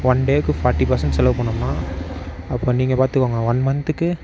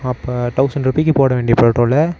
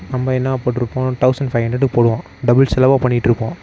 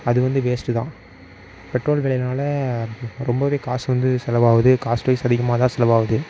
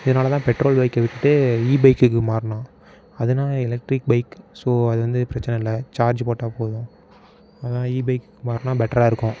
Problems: background sounds at intervals